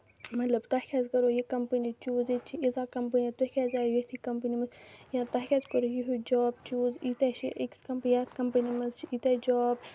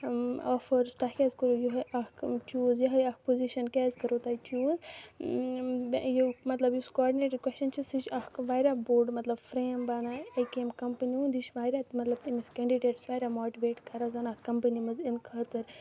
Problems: background sounds at intervals, low volume